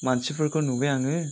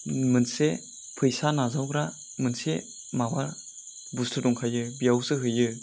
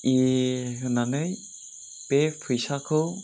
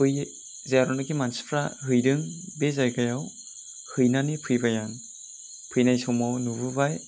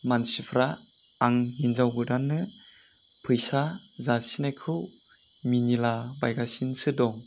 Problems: constant background noise